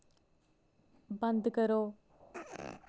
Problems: low volume